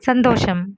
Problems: background sounds at intervals